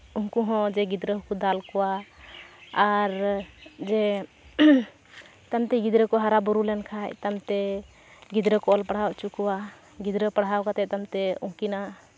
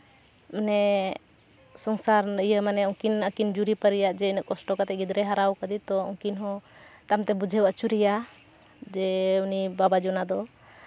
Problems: constant background noise, background conversations at intervals